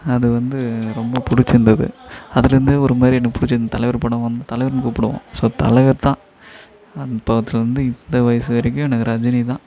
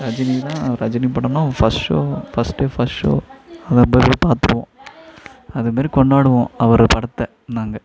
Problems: background conversations at intervals